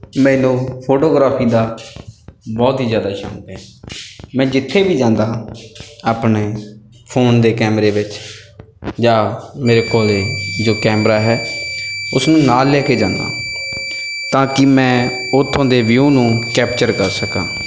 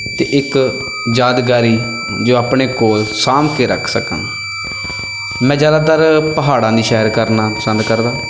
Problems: constant background noise